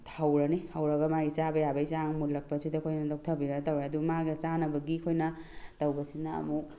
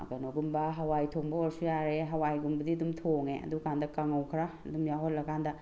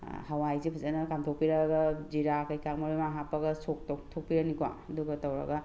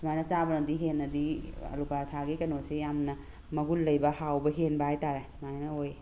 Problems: none marked